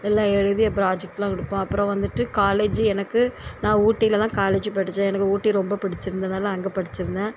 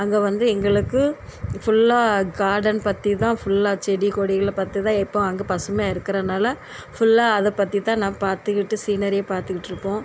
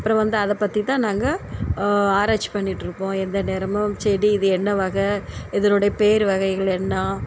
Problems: constant background noise